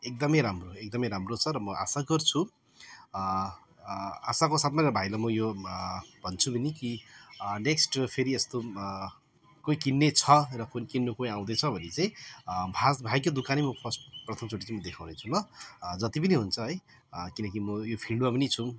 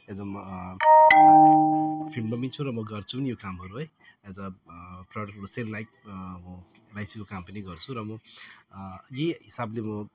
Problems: background sounds at intervals